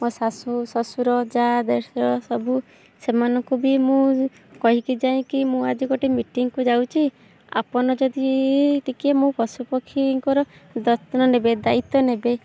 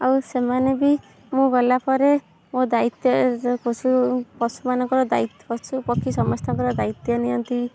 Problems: background sounds at intervals